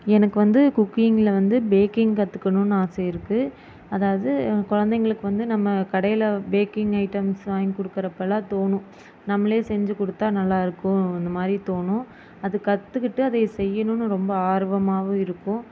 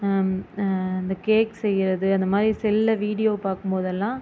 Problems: constant background noise